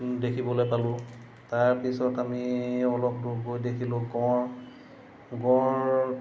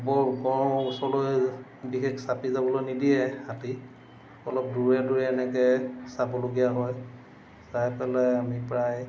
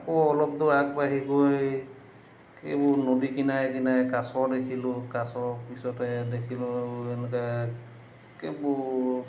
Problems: constant background noise